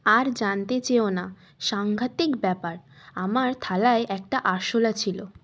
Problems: constant background noise